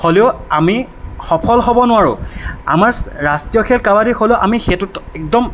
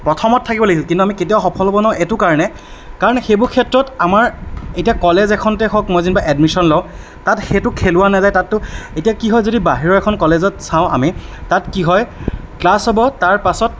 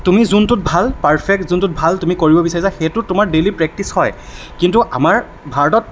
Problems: none marked